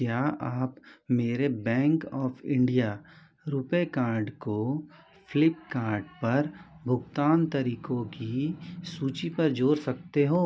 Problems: constant background noise, continuous background conversations